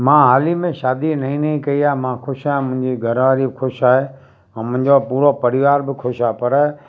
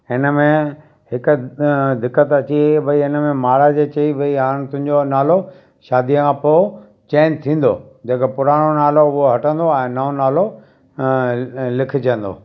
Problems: background sounds at intervals, background conversations at intervals